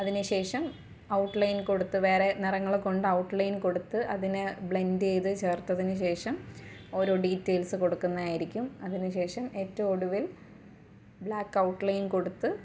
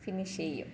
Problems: low volume